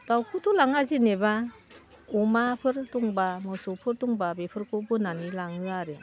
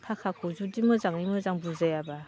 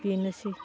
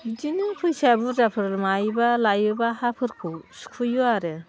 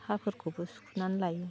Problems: constant background noise